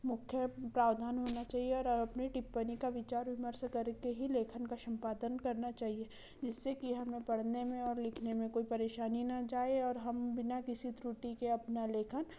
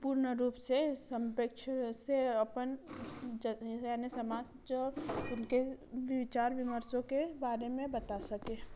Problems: low volume